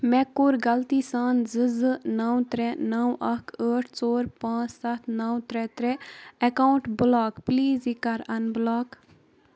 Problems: none marked